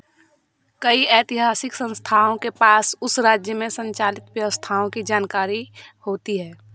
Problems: background sounds at intervals